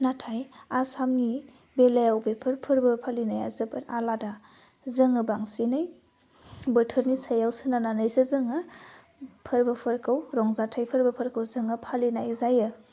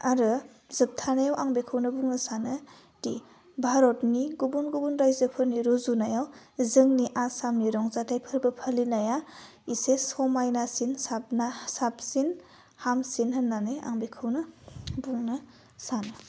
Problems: constant background noise